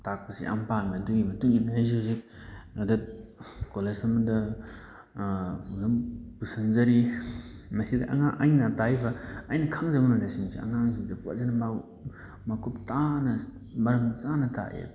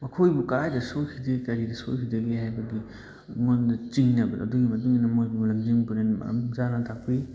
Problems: background sounds at intervals, background conversations at intervals